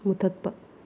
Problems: low volume